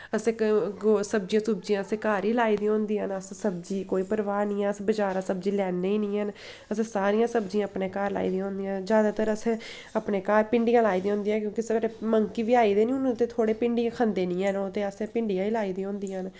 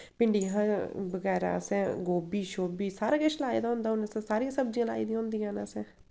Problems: constant background noise